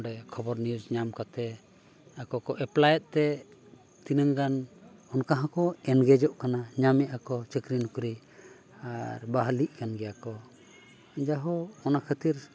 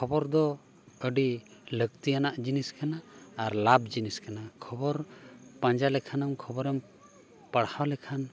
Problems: none marked